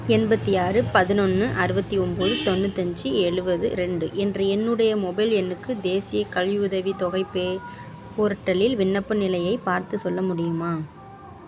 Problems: background sounds at intervals